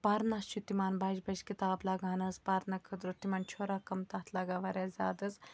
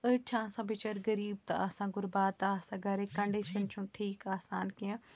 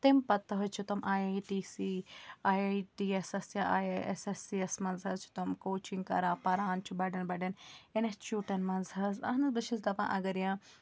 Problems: background sounds at intervals